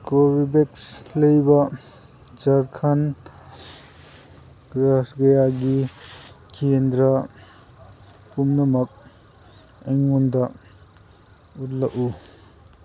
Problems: none marked